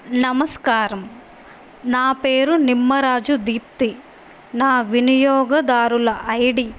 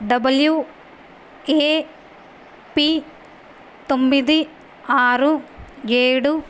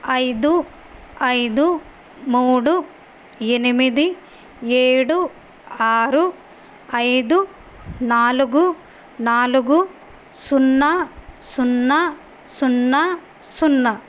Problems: none marked